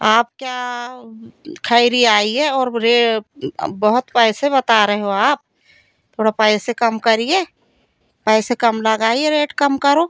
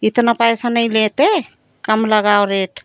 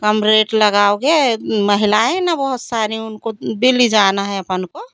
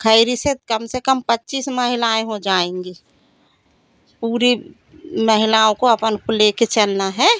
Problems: constant background noise